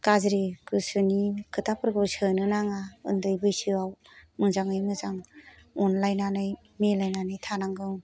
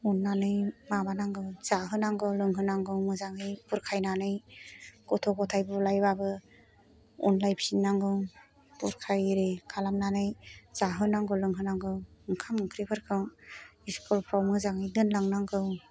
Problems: none marked